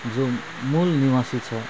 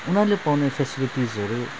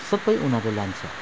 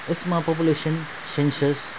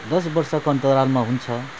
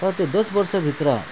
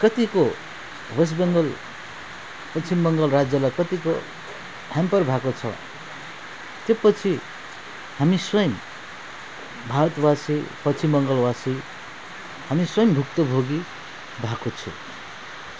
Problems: background sounds at intervals